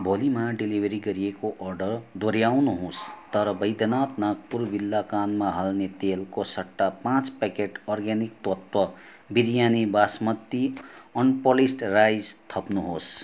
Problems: constant background noise, continuous background conversations